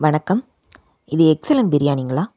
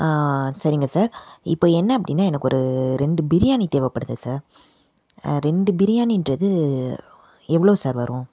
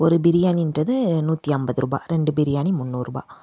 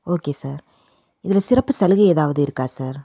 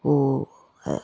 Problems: none marked